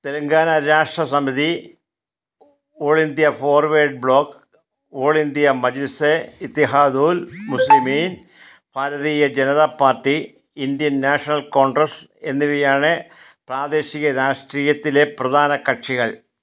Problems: background sounds at intervals